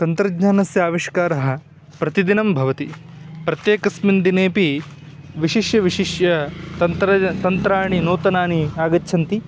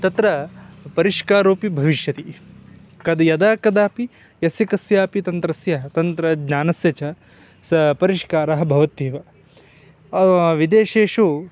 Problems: none marked